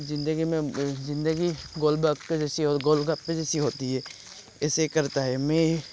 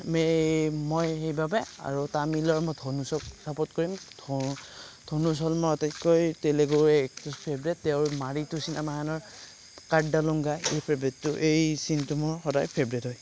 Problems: background sounds at intervals